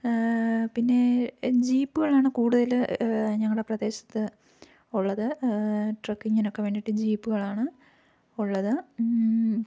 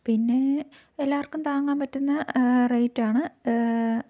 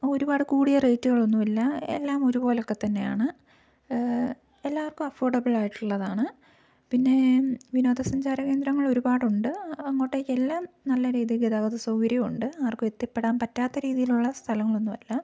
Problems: low volume